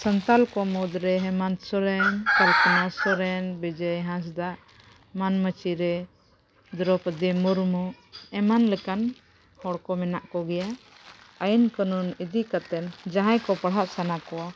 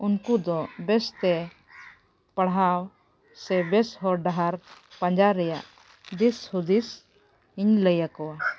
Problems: background sounds at intervals